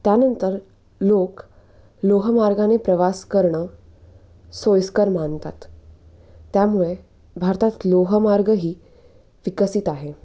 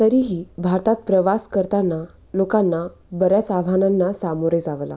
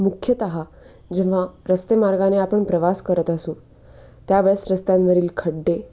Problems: background sounds at intervals